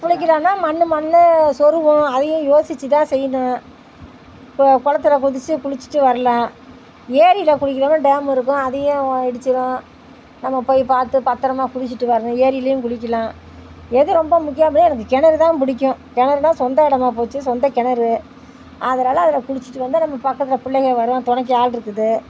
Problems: none marked